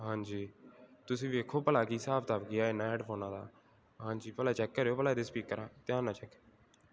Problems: none marked